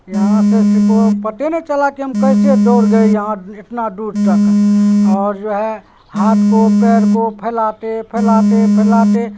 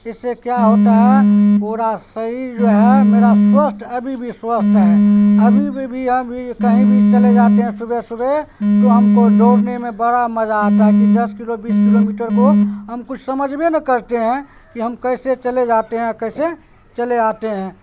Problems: constant background noise, background conversations at intervals